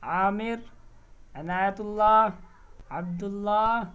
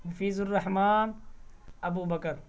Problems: constant background noise